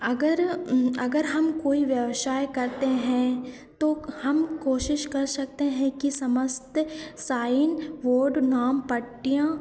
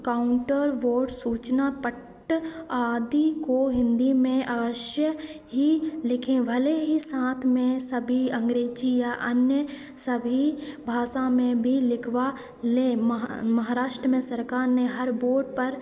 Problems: constant background noise, echo